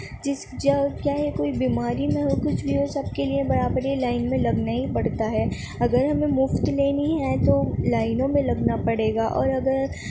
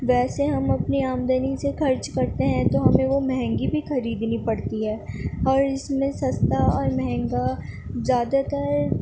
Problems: constant background noise